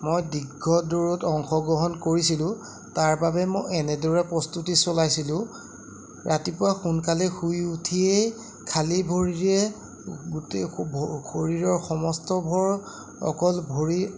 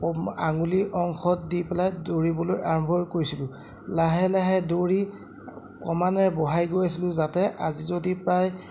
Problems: none marked